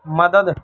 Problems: background sounds at intervals